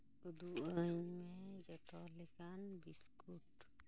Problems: low volume